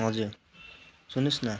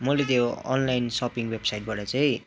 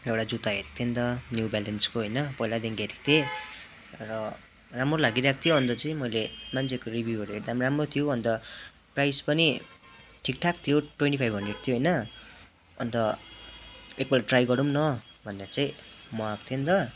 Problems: constant background noise